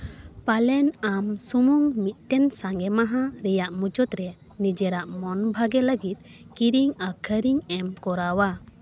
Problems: none marked